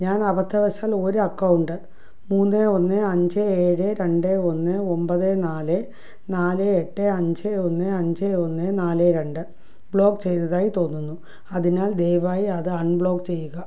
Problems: low volume